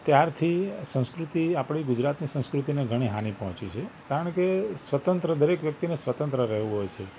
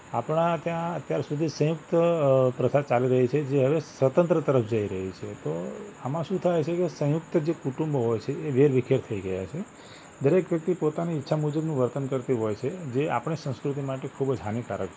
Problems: constant background noise